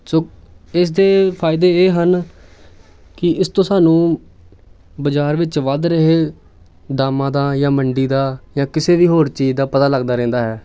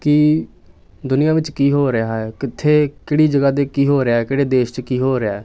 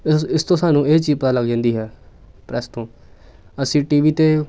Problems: background sounds at intervals